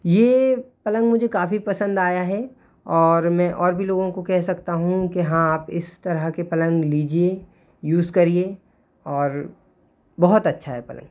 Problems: constant background noise